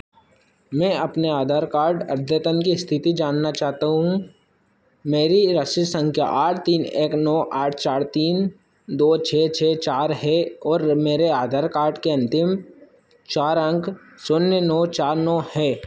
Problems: constant background noise